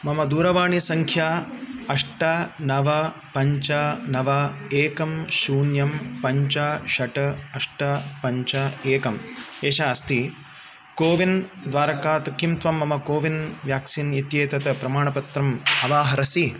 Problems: constant background noise